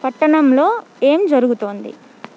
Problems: constant background noise